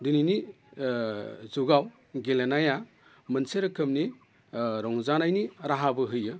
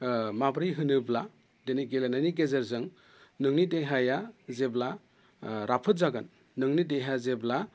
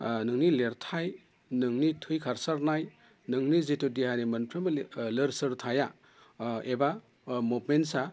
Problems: constant background noise